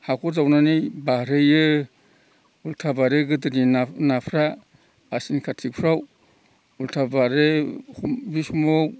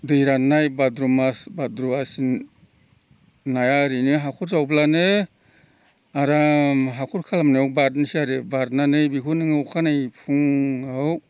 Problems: constant background noise